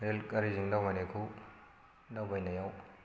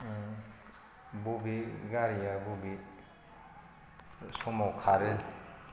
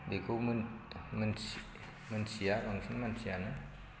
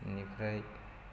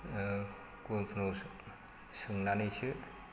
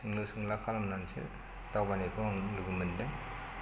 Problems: constant background noise